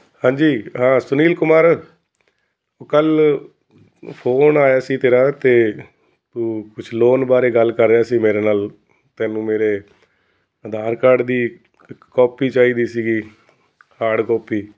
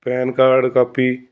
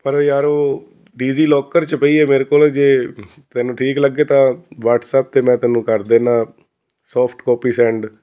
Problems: constant background noise